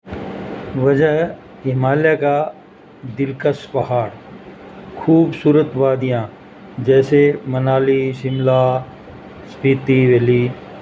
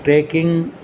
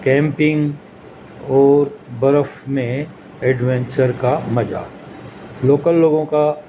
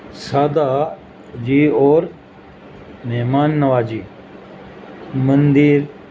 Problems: constant background noise